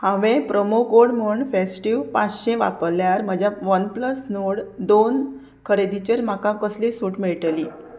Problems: none marked